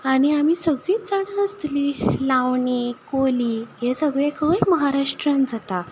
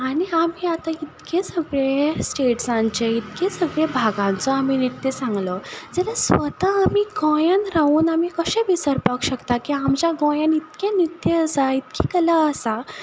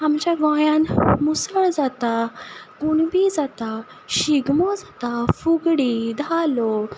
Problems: none marked